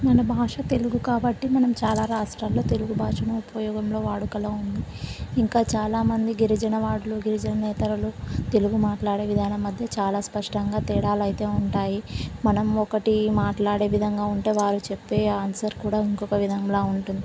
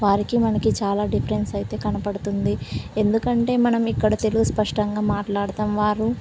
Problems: constant background noise